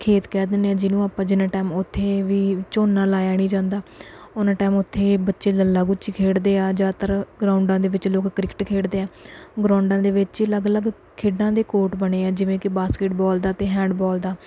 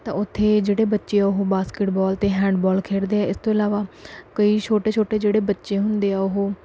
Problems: background sounds at intervals